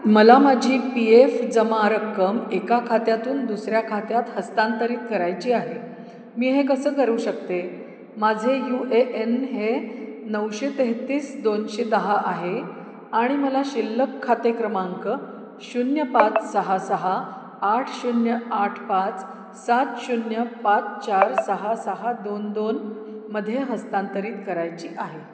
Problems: none marked